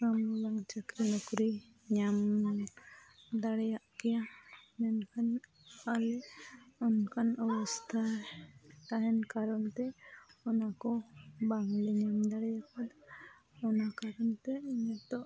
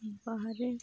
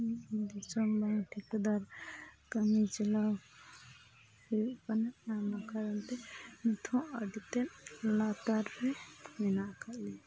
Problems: low volume